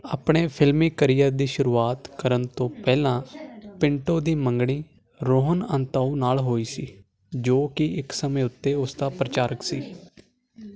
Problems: constant background noise